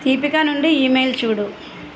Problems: constant background noise